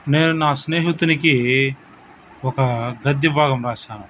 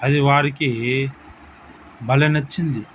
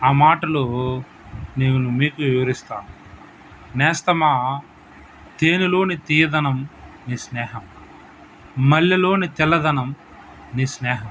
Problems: constant background noise